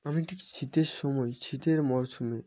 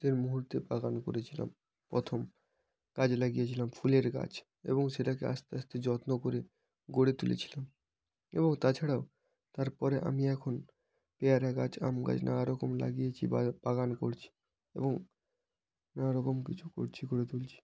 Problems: background sounds at intervals, background conversations at intervals